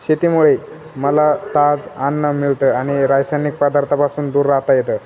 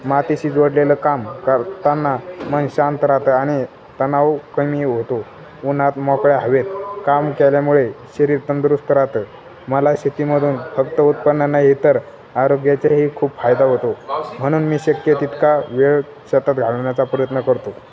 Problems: none marked